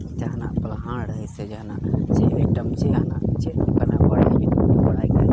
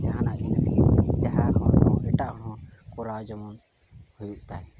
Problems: constant background noise